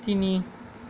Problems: constant background noise